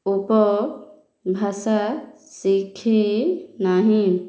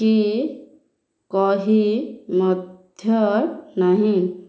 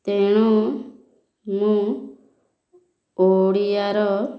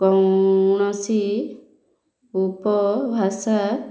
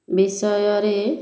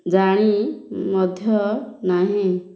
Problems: none marked